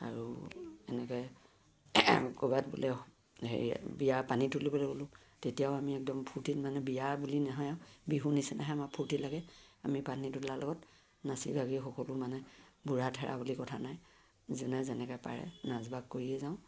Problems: low volume